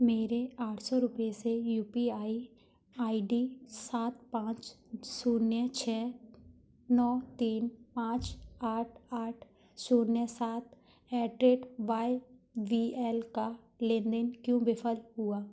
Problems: constant background noise